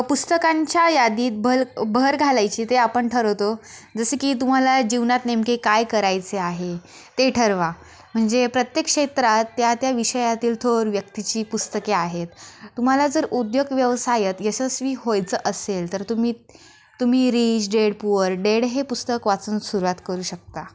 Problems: background sounds at intervals